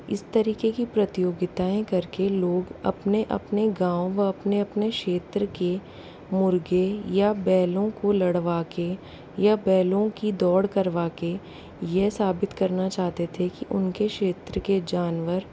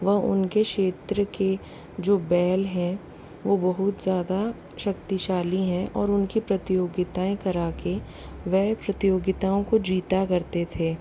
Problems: constant background noise